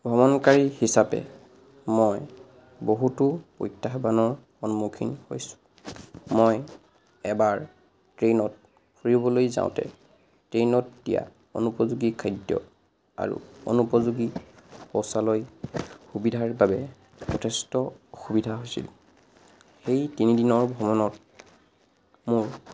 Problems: background sounds at intervals